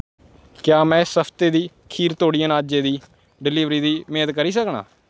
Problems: none marked